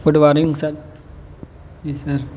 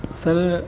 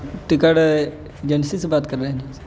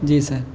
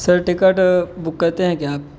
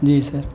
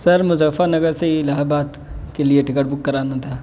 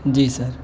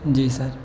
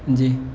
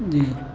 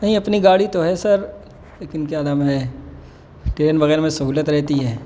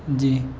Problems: constant background noise